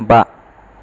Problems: none marked